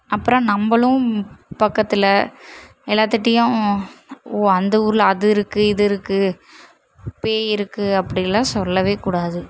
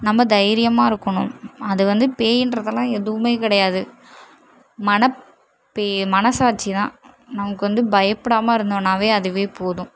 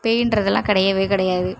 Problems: none marked